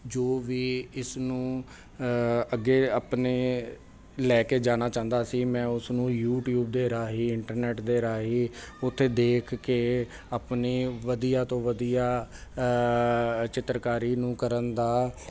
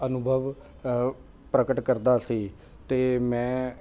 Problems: constant background noise